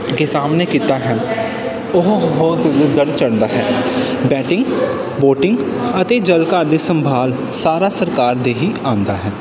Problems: none marked